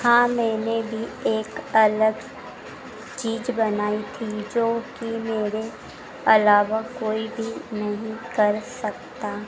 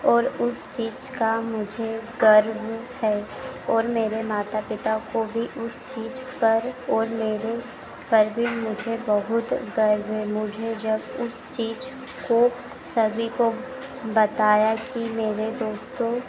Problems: constant background noise